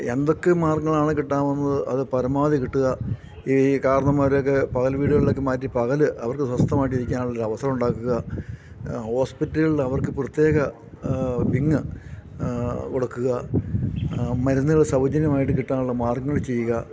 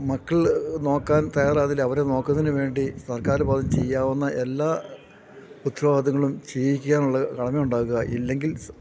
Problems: background sounds at intervals